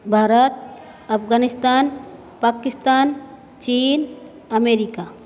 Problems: constant background noise, background conversations at intervals